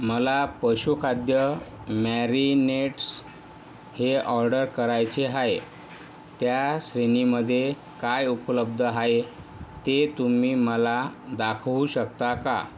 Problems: none marked